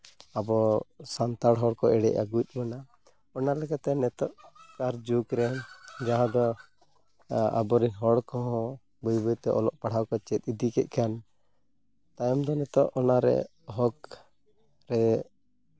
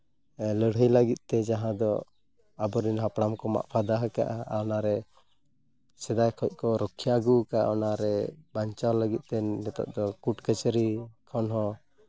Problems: none marked